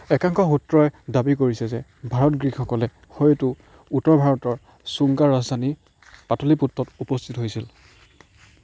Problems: none marked